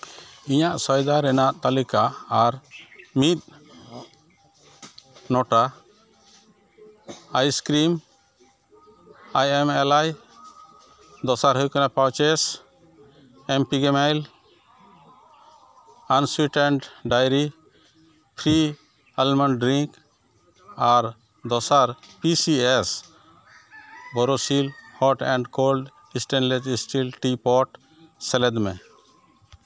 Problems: constant background noise, continuous background conversations